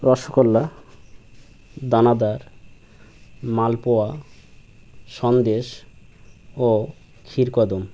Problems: constant background noise